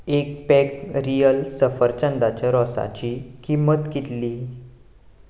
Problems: background sounds at intervals